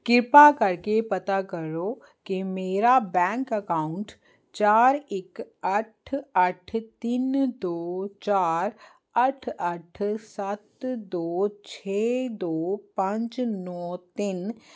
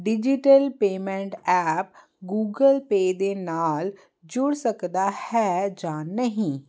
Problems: none marked